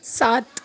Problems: none marked